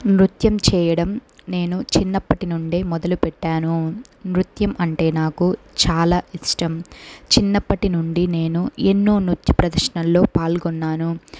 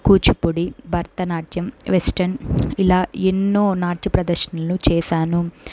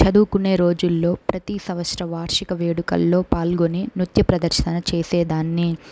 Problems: background sounds at intervals